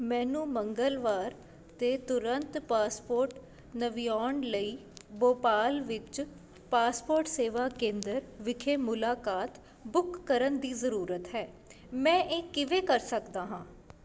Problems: constant background noise